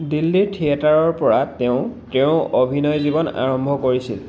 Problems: background sounds at intervals